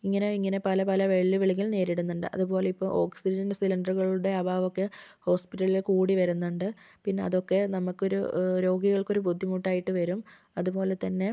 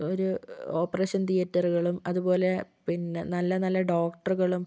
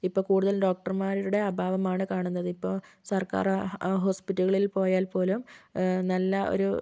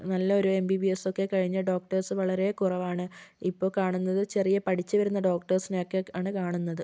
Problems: none marked